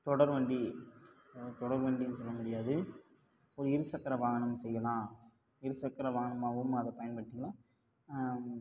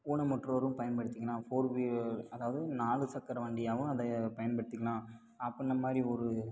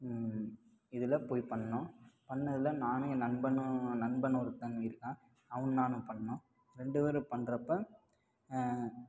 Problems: low volume